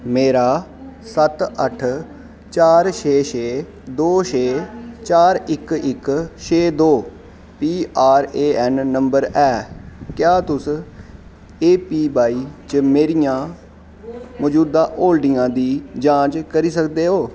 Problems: constant background noise